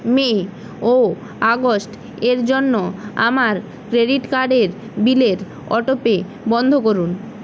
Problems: constant background noise